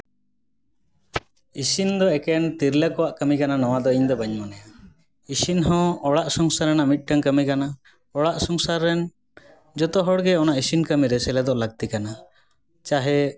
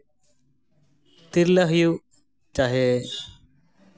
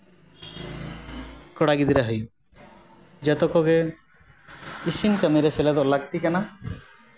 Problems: constant background noise, background conversations at intervals